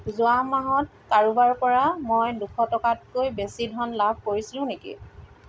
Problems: constant background noise